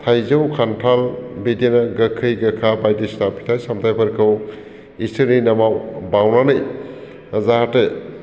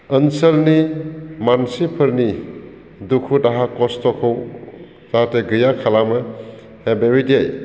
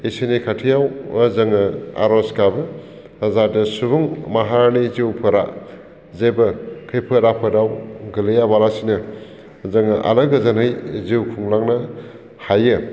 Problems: constant background noise